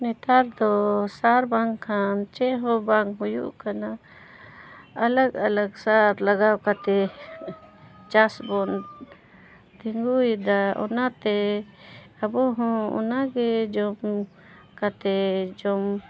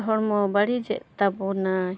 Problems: none marked